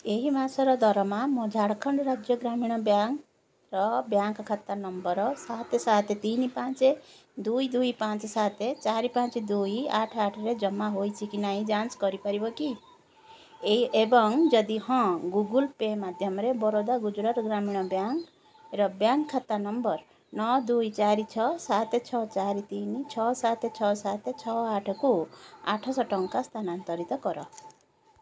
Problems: none marked